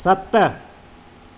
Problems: constant background noise, echo